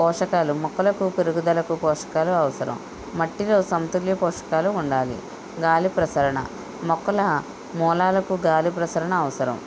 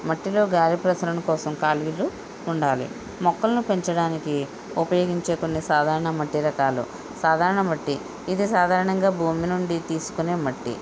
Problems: constant background noise